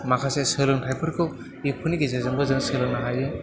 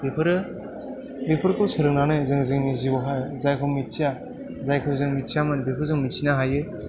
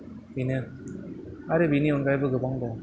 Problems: background conversations at intervals, echo